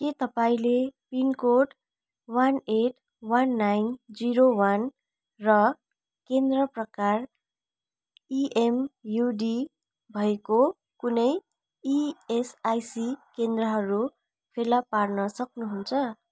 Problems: none marked